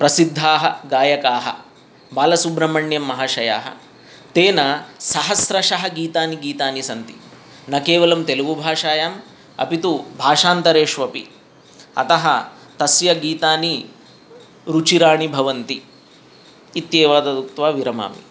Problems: none marked